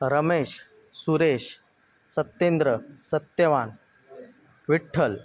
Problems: none marked